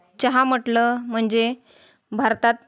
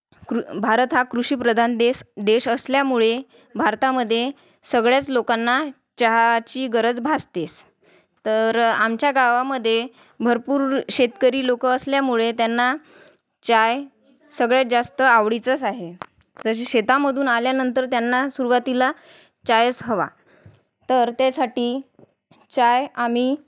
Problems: constant background noise, background conversations at intervals